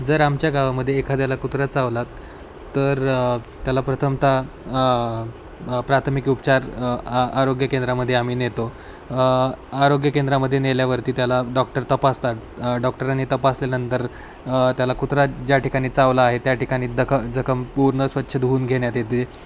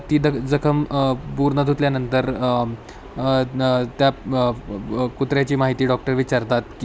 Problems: constant background noise, background conversations at intervals